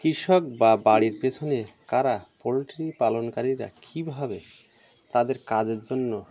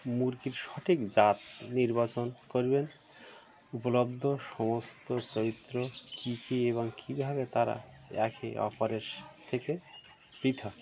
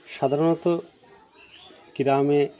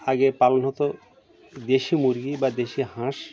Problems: constant background noise, continuous background conversations